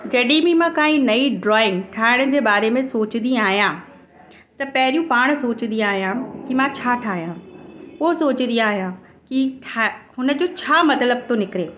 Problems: constant background noise, echo